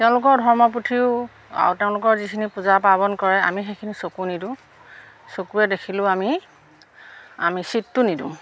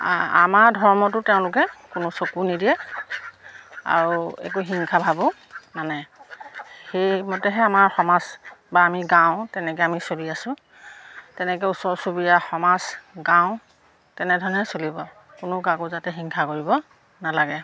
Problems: none marked